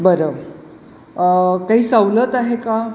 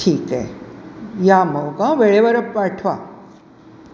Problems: constant background noise